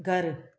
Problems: none marked